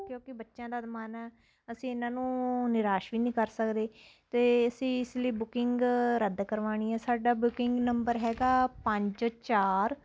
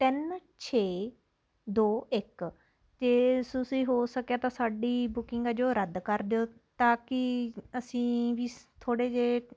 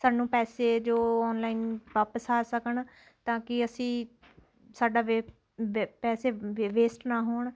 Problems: constant background noise